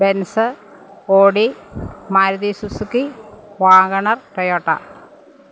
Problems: none marked